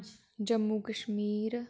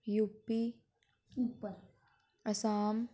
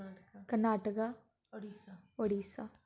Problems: constant background noise, background conversations at intervals